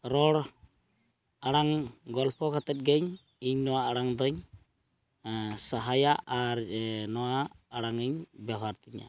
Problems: background sounds at intervals